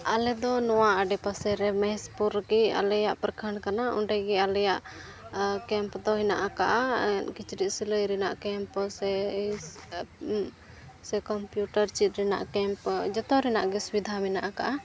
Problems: constant background noise, background conversations at intervals